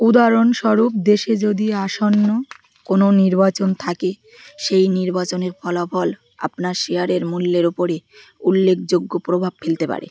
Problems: constant background noise